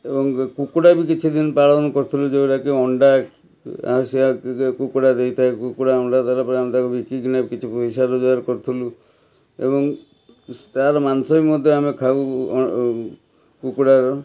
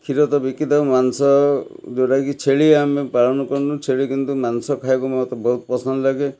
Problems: background sounds at intervals, background conversations at intervals